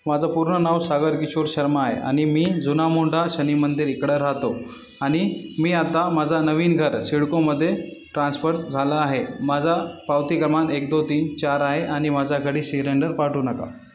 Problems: none marked